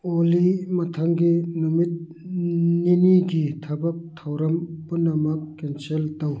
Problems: none marked